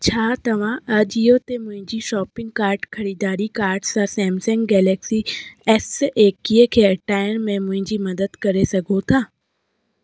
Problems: none marked